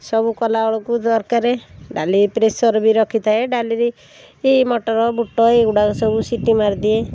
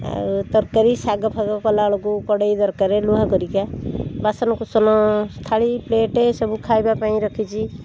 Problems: constant background noise